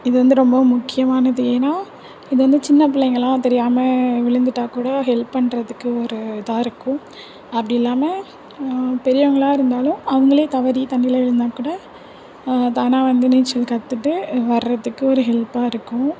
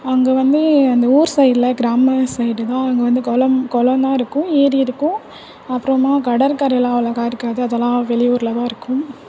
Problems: constant background noise, continuous background conversations